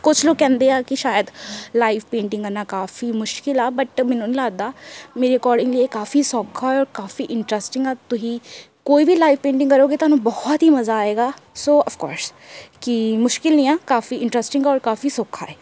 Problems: none marked